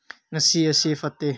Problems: low volume